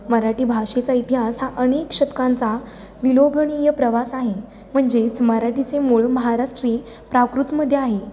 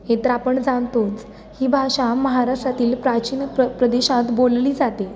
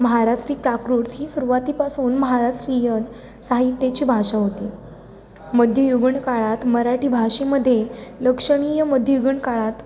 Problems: none marked